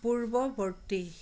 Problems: none marked